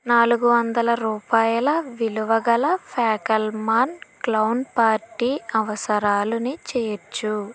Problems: constant background noise